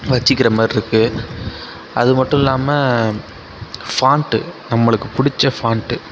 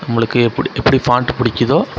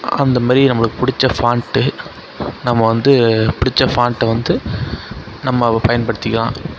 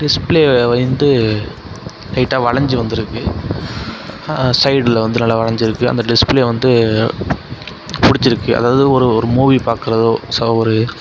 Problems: constant background noise, background conversations at intervals